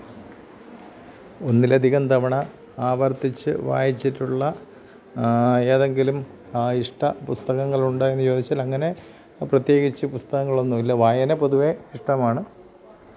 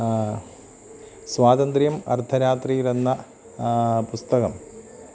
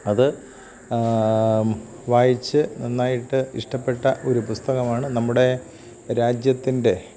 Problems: constant background noise, low volume